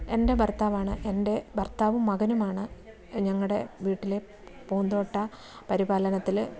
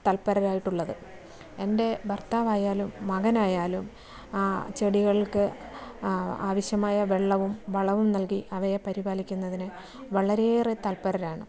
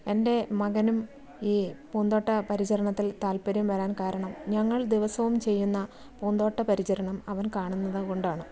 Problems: low volume